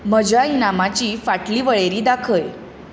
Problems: constant background noise